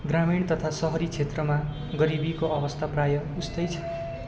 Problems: constant background noise